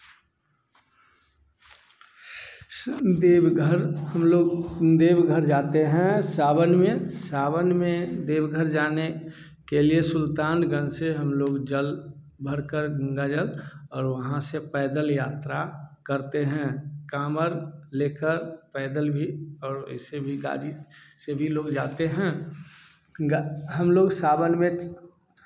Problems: background sounds at intervals, echo